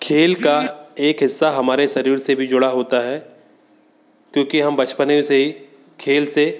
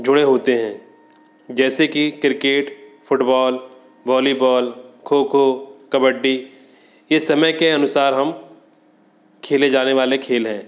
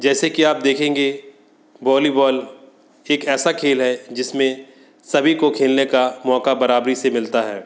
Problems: none marked